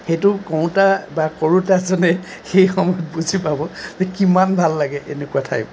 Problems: constant background noise